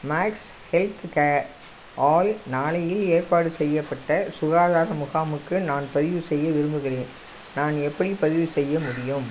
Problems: constant background noise